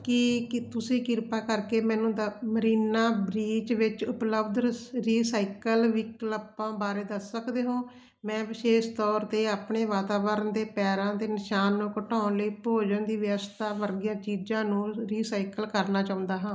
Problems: constant background noise